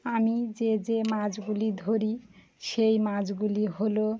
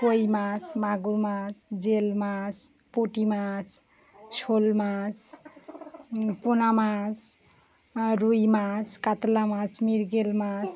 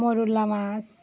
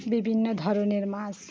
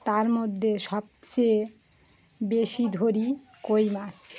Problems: constant background noise, background conversations at intervals